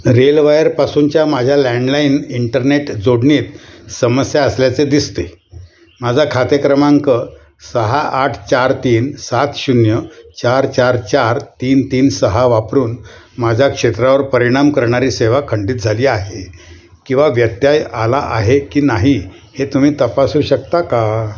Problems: constant background noise, continuous background conversations